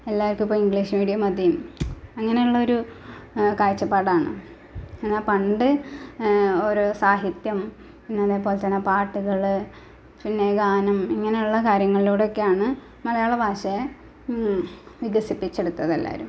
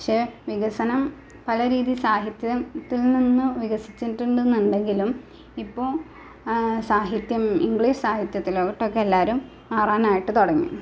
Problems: none marked